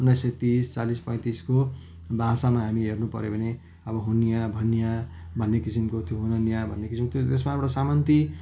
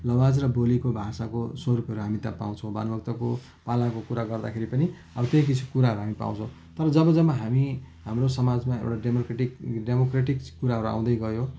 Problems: none marked